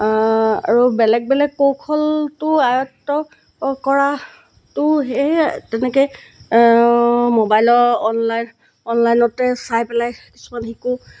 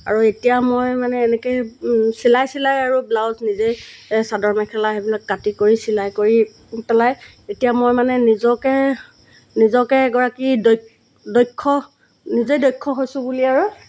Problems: background sounds at intervals